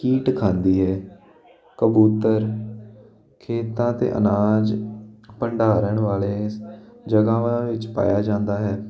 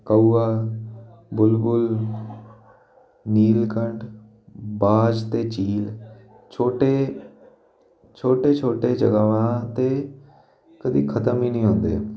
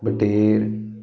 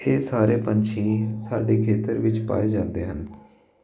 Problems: constant background noise